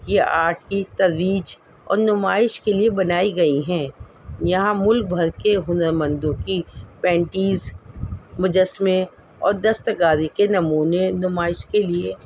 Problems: constant background noise